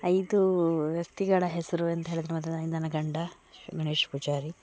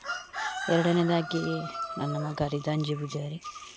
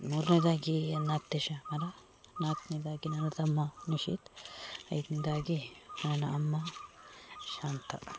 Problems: background sounds at intervals